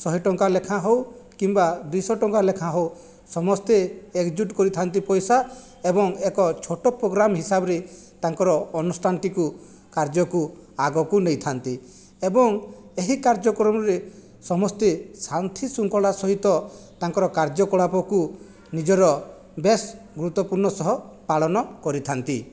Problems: background sounds at intervals